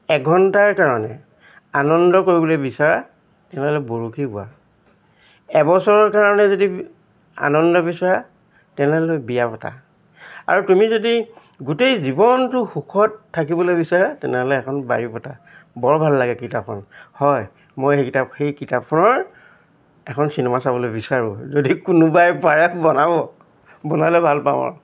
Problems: constant background noise